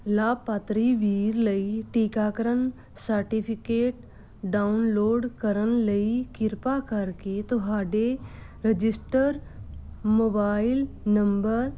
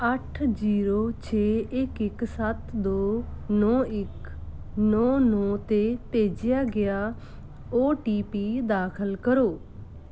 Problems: none marked